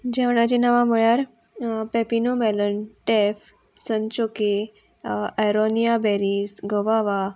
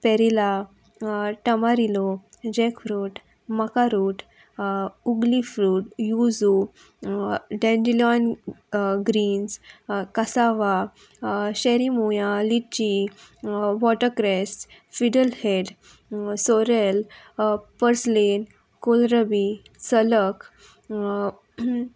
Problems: constant background noise, background conversations at intervals